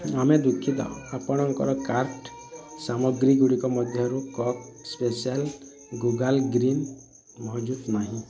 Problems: constant background noise, continuous background conversations